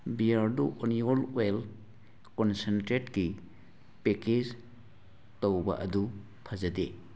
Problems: none marked